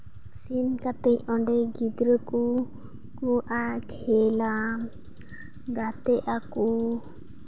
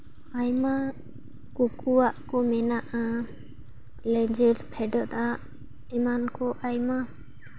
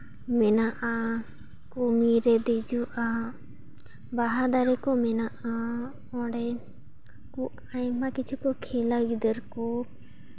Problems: background sounds at intervals